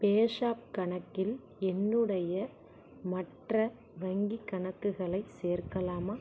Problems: constant background noise, low volume